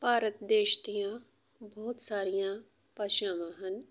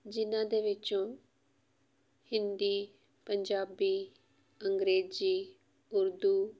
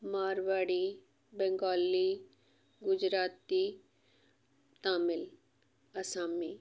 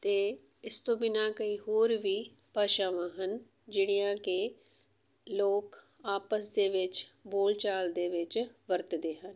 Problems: none marked